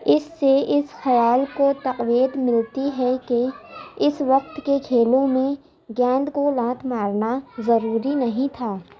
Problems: background conversations at intervals, low volume